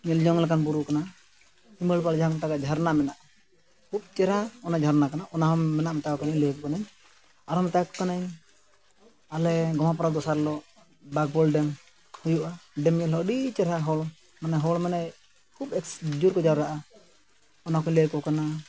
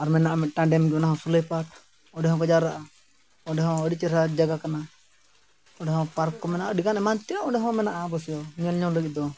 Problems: background sounds at intervals